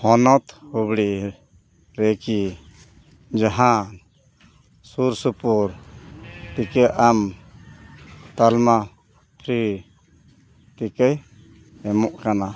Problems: none marked